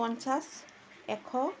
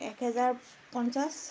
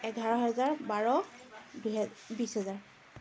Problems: continuous background conversations